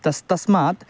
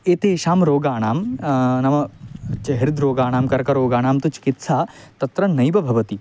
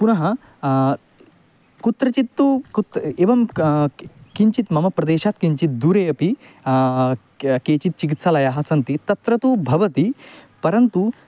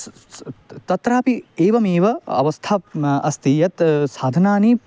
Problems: constant background noise